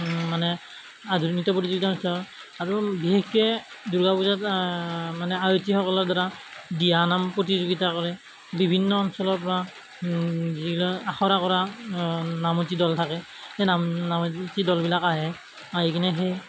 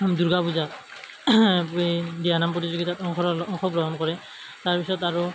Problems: constant background noise